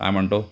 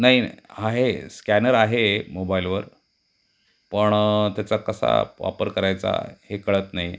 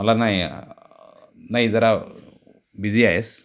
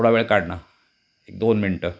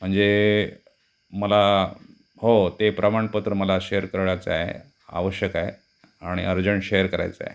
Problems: constant background noise